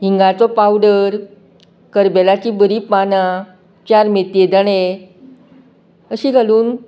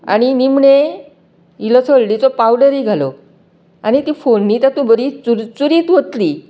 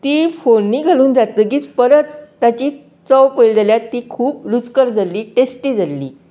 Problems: none marked